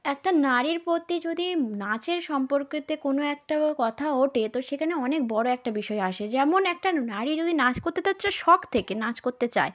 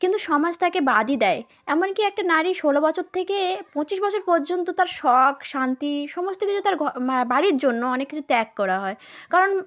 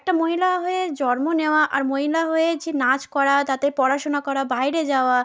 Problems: background sounds at intervals